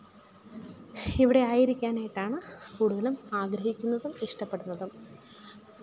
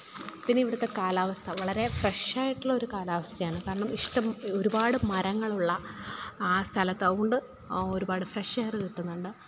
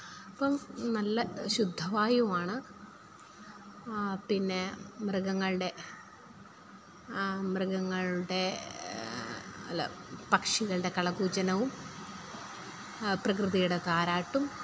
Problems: low volume